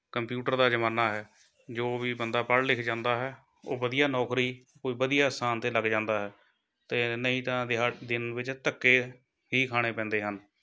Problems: none marked